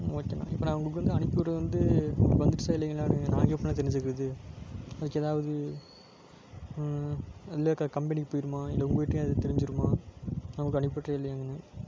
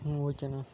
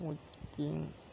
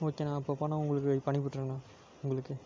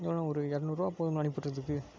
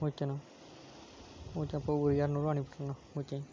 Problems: constant background noise